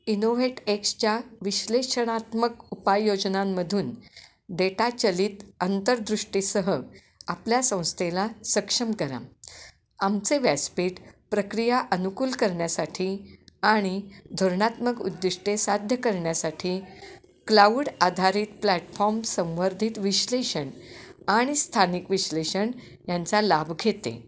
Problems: background sounds at intervals, background conversations at intervals